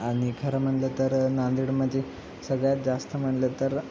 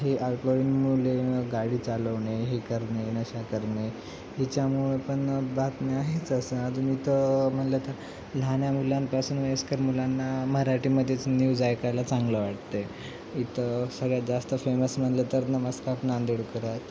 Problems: constant background noise